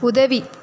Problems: background conversations at intervals